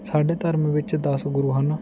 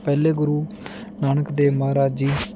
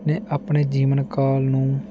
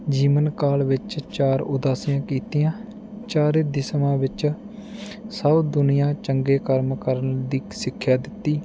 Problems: constant background noise